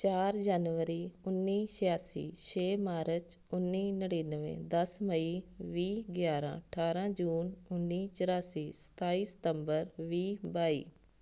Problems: none marked